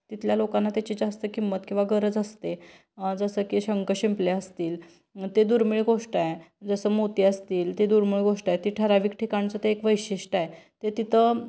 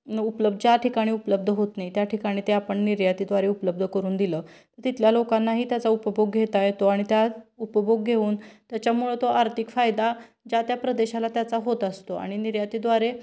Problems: constant background noise